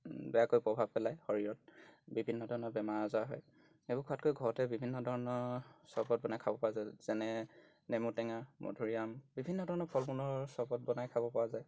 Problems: background sounds at intervals